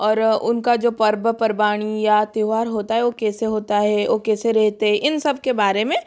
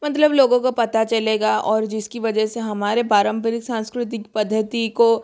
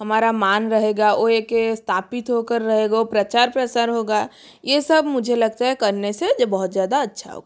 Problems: none marked